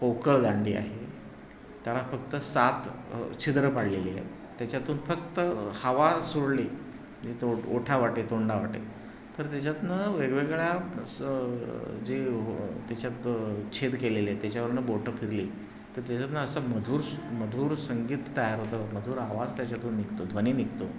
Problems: constant background noise